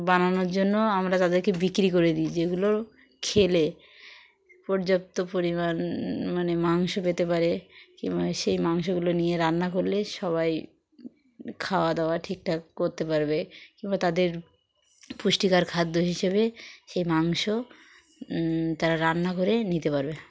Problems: constant background noise, background conversations at intervals